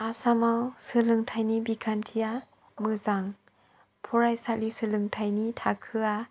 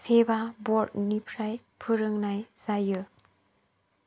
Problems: low volume